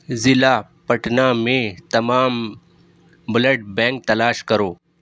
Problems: none marked